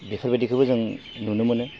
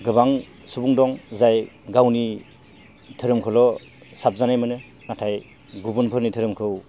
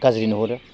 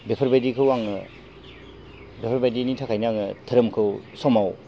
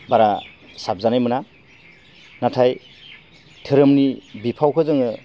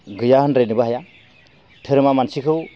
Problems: none marked